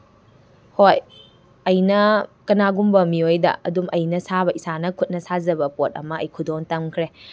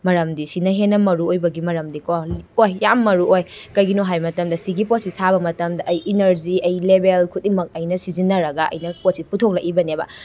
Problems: constant background noise